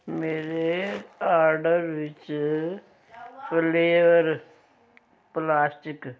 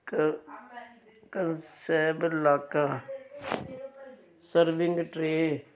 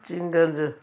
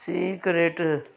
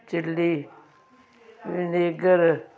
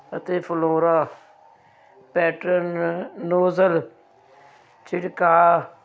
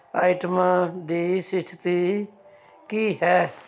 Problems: continuous background conversations